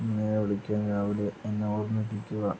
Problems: constant background noise, low volume